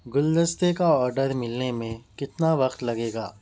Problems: none marked